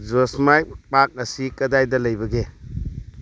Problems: none marked